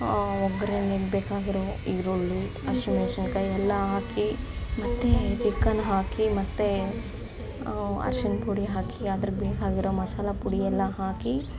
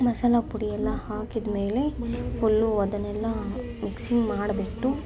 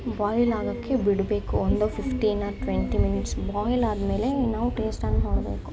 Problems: constant background noise